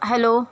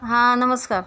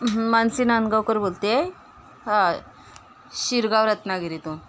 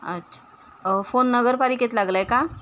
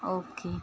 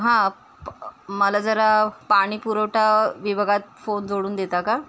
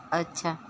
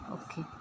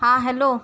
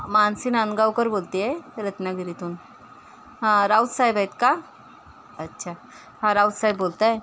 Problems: constant background noise, background conversations at intervals